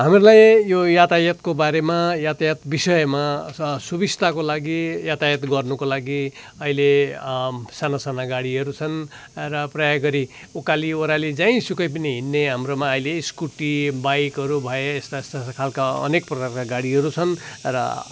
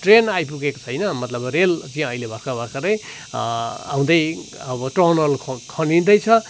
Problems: constant background noise